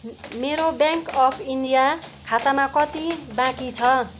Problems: none marked